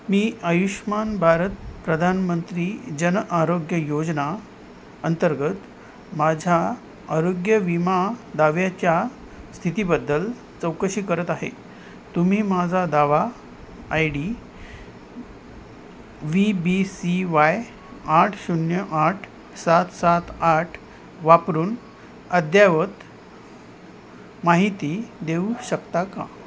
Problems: constant background noise